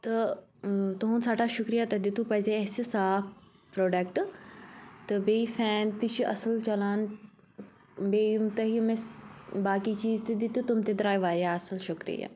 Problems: constant background noise